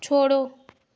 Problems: constant background noise